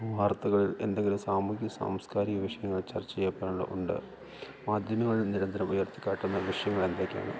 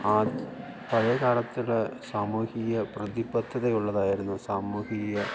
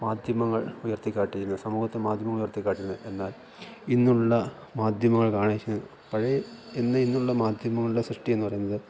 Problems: none marked